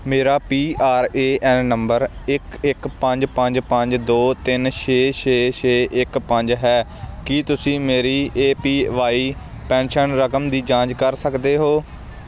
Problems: constant background noise